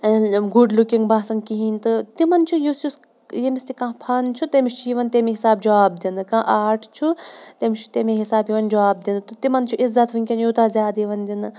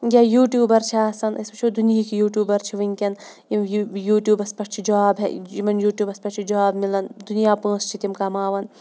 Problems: background sounds at intervals